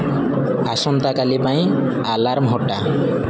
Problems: constant background noise